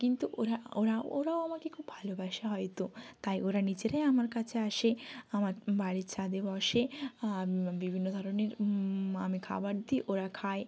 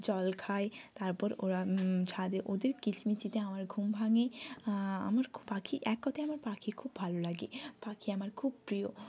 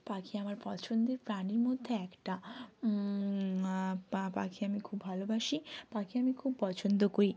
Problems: none marked